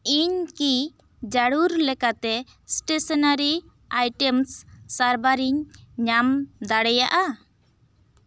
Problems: none marked